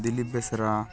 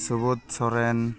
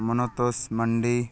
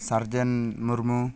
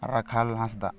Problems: background sounds at intervals